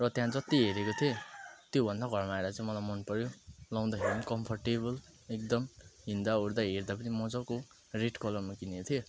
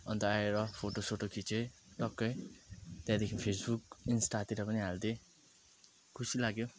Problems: background sounds at intervals